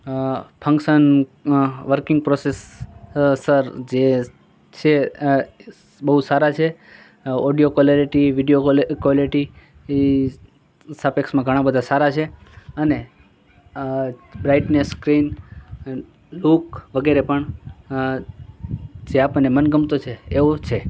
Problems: constant background noise